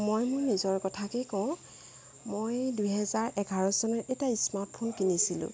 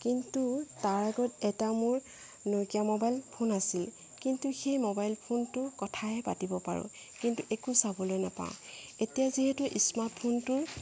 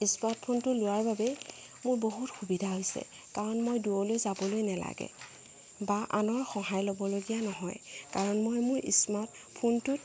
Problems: background sounds at intervals